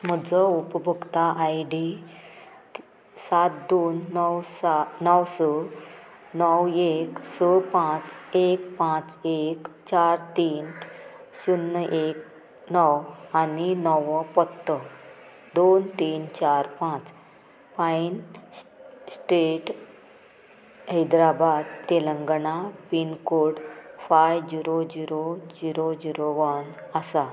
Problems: none marked